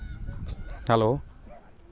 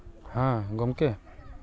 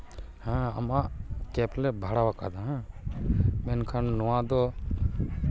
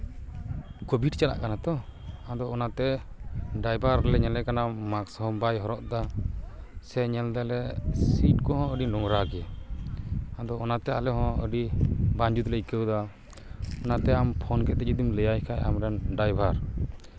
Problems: constant background noise